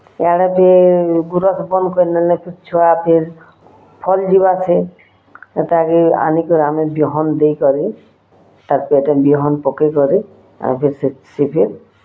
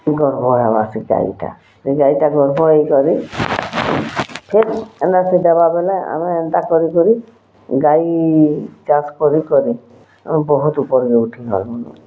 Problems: constant background noise, continuous background conversations